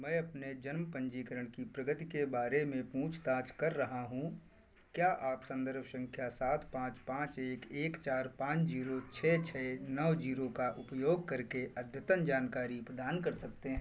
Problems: background sounds at intervals